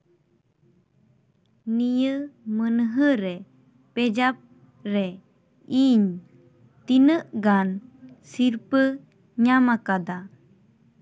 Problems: background conversations at intervals